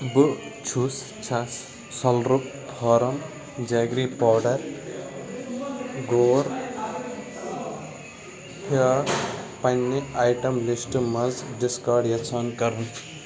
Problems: constant background noise, background conversations at intervals